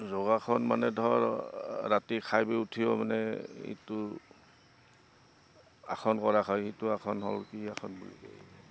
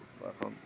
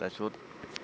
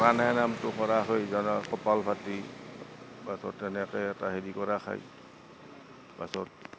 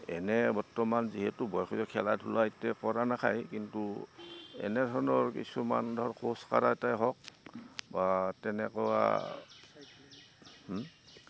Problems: constant background noise